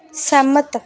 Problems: none marked